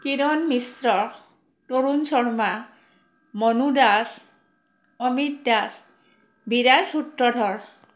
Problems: none marked